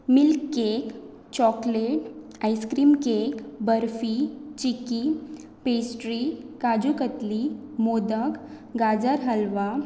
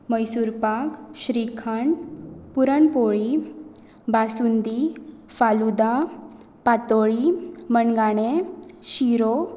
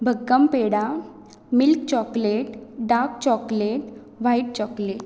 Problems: none marked